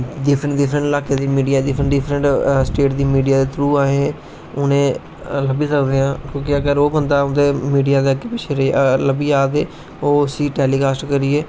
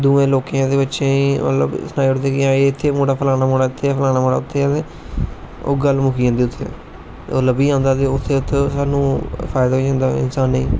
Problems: constant background noise